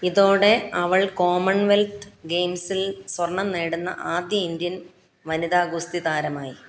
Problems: none marked